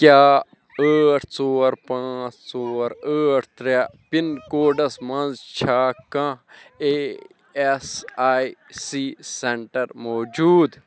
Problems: none marked